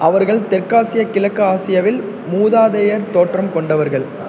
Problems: constant background noise